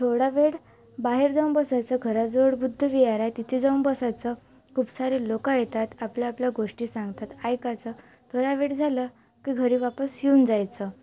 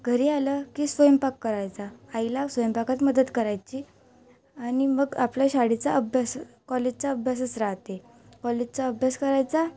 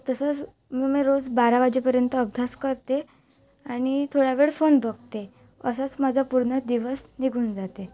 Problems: background sounds at intervals